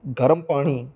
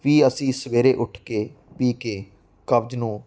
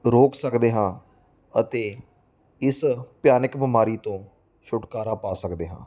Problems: none marked